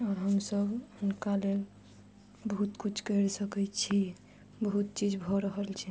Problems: none marked